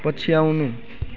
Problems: none marked